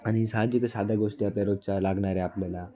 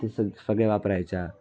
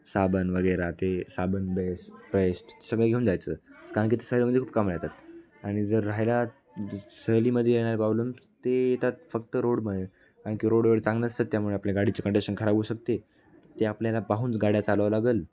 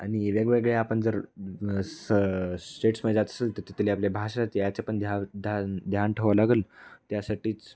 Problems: background sounds at intervals, continuous background conversations